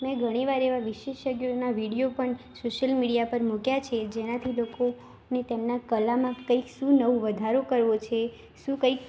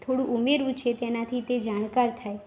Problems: constant background noise